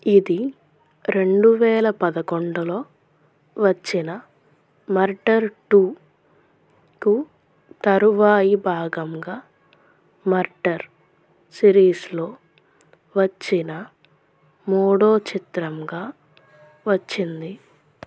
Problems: none marked